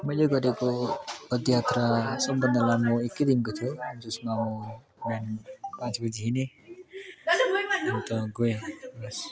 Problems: continuous background conversations